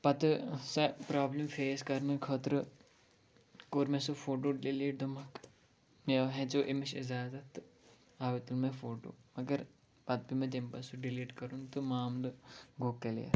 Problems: none marked